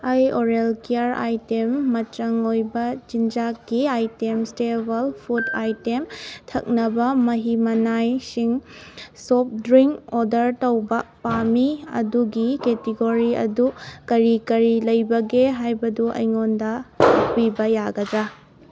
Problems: background sounds at intervals